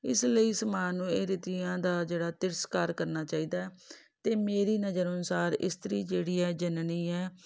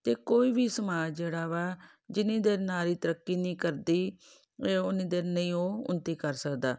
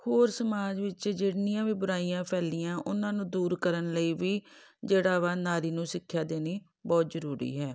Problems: none marked